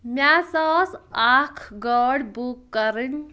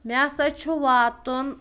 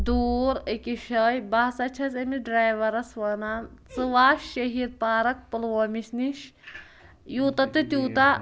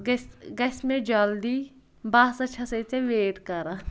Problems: background conversations at intervals